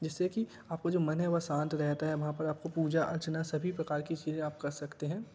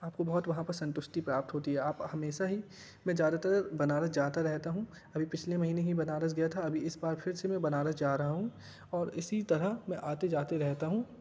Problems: background sounds at intervals